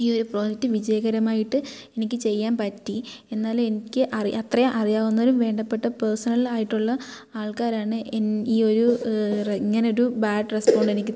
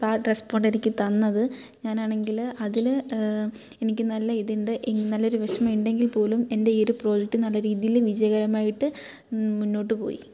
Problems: background sounds at intervals